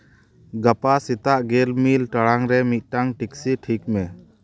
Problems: background conversations at intervals